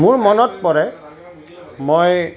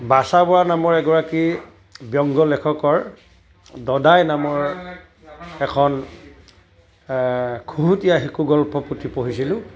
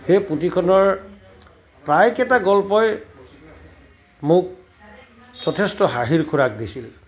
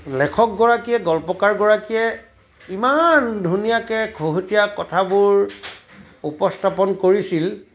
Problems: continuous background conversations